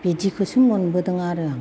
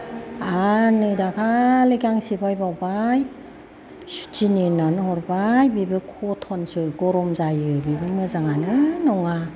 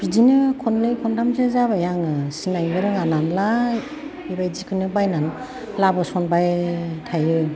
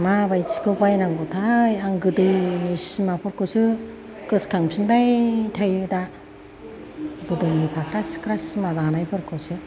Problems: constant background noise, background conversations at intervals